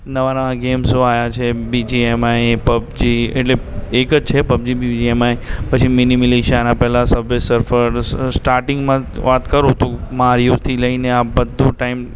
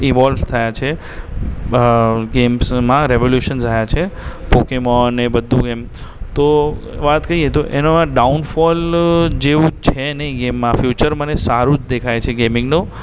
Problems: constant background noise